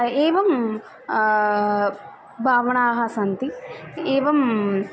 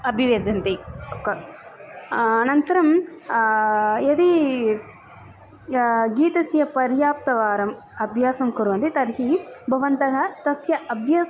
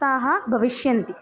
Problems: constant background noise